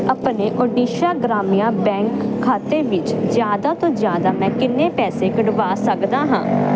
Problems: constant background noise